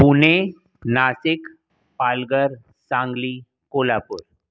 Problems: none marked